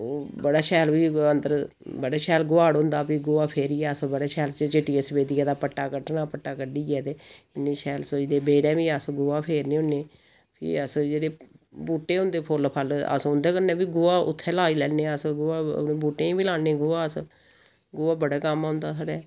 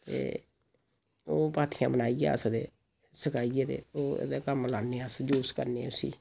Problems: none marked